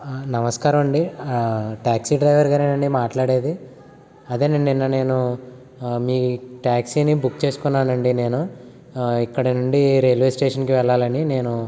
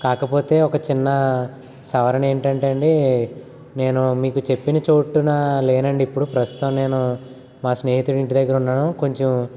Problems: constant background noise